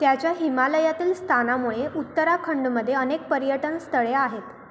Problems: constant background noise